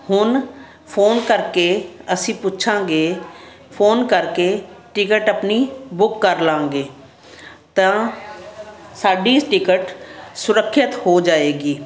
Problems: constant background noise